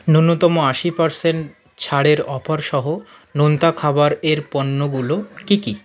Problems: continuous background conversations